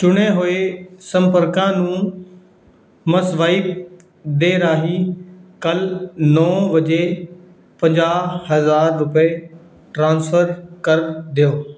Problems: background sounds at intervals